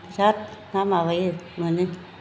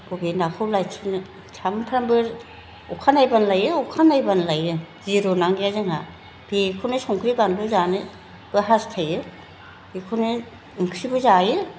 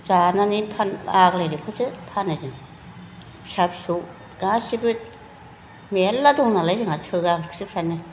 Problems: background sounds at intervals